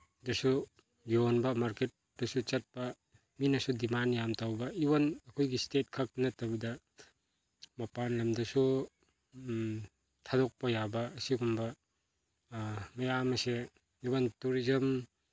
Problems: none marked